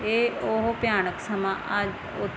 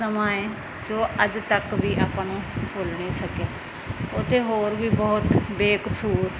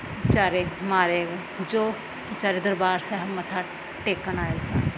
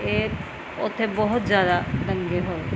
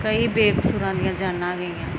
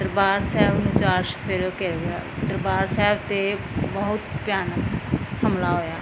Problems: none marked